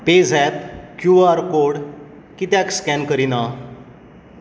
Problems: echo